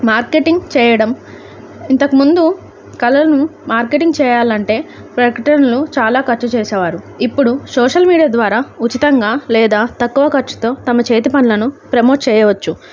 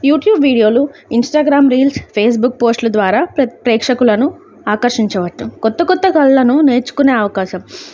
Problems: none marked